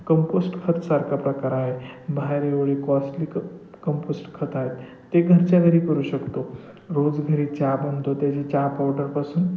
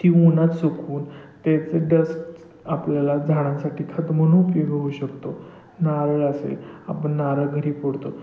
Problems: constant background noise